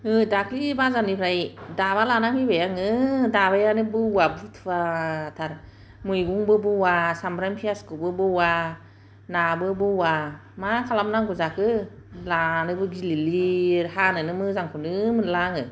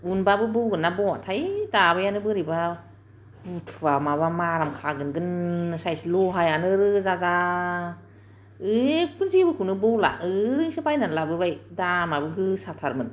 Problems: none marked